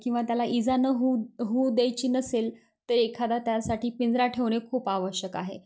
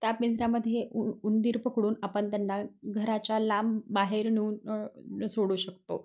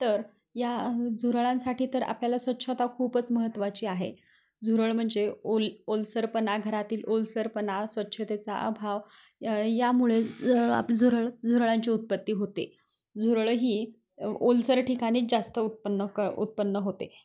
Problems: constant background noise, continuous background conversations